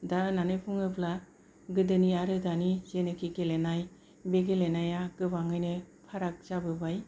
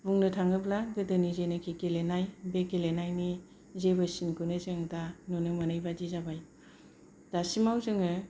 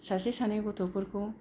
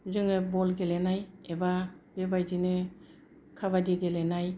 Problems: low volume